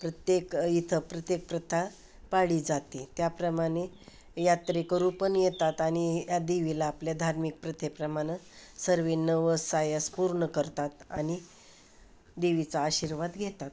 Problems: constant background noise, continuous background conversations